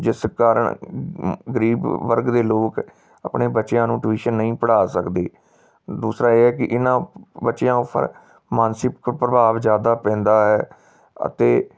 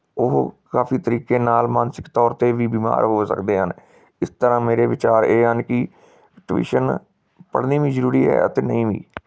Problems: background sounds at intervals